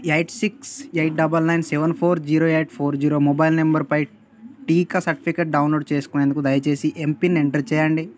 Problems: none marked